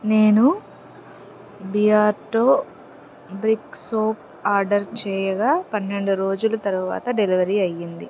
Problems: constant background noise